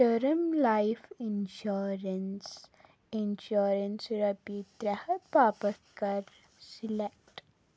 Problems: background sounds at intervals